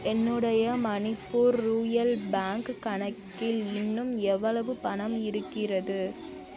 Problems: none marked